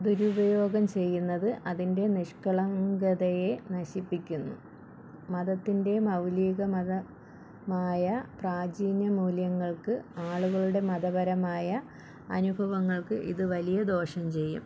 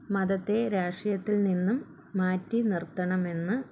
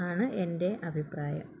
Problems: low volume